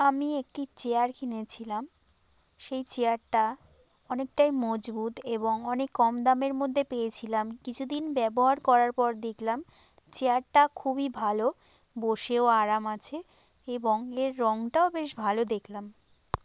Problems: constant background noise